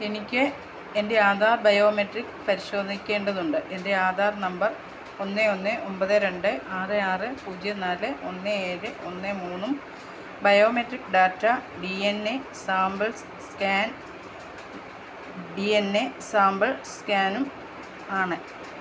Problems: none marked